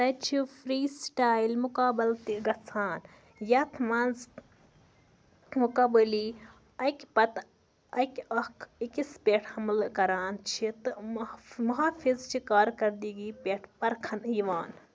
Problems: constant background noise